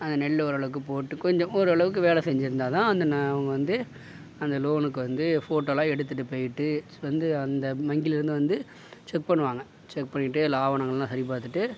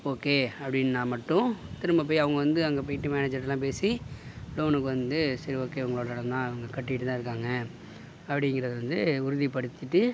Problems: background sounds at intervals